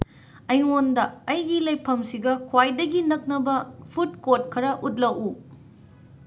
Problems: background sounds at intervals